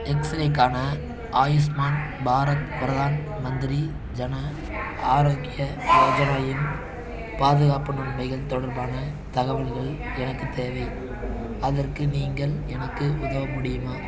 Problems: continuous background conversations